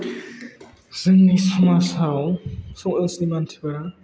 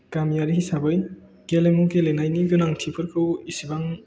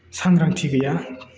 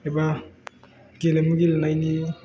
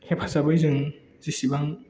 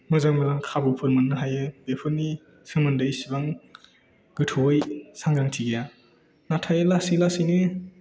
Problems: low volume